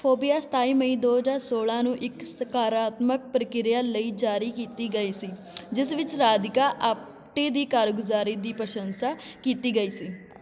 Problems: continuous background conversations